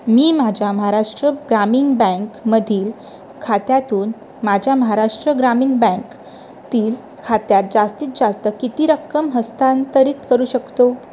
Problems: none marked